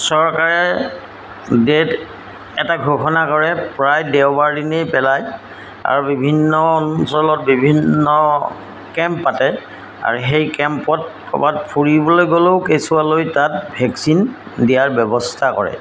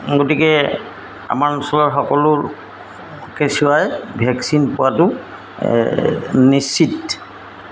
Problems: background sounds at intervals